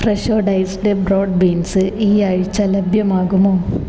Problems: constant background noise